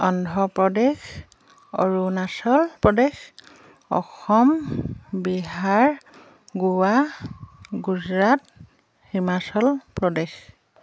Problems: none marked